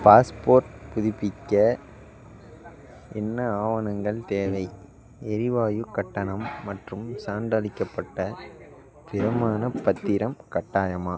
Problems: background conversations at intervals